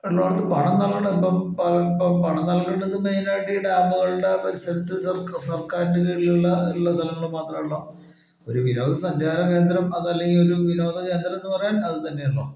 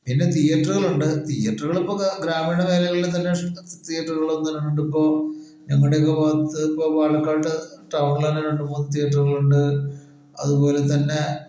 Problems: none marked